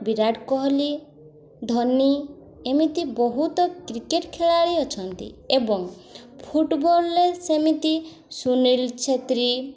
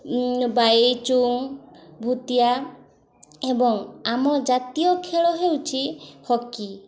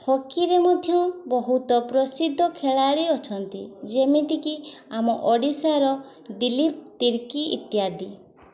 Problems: constant background noise, continuous background conversations